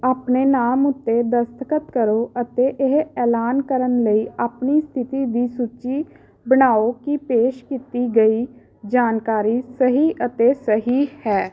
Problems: background sounds at intervals, background conversations at intervals